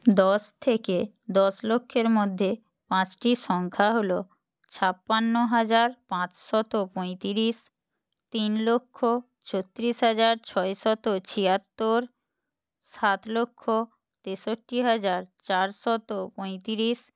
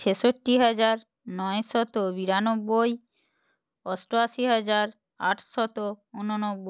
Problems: none marked